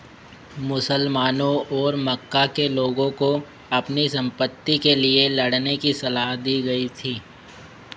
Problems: constant background noise